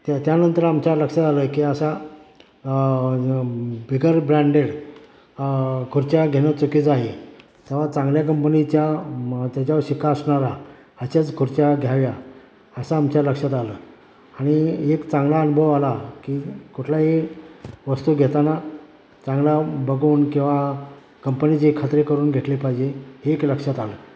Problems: background sounds at intervals